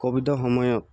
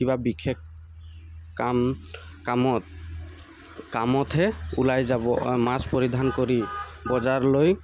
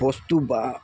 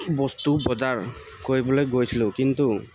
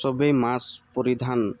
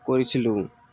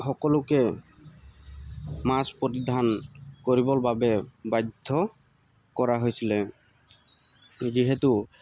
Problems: constant background noise, background conversations at intervals